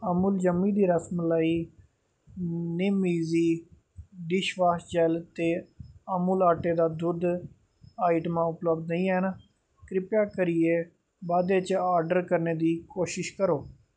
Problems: background sounds at intervals